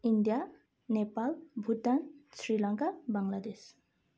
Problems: none marked